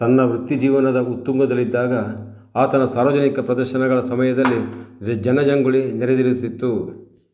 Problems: background sounds at intervals